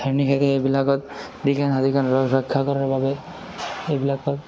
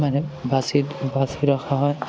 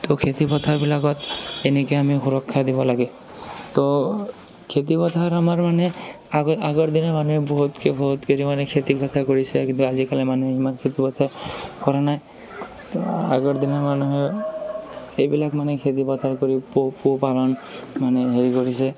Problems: constant background noise, continuous background conversations